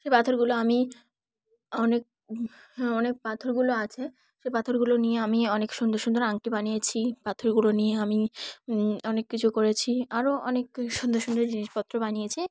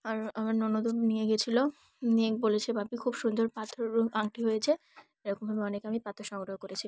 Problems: background sounds at intervals